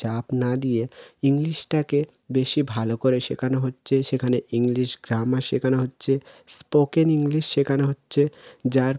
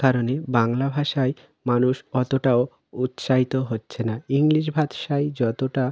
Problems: none marked